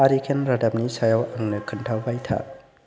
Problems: constant background noise